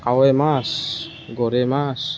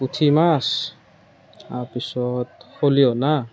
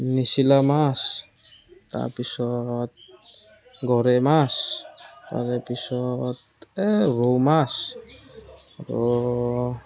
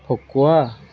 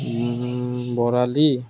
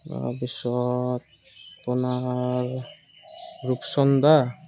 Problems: none marked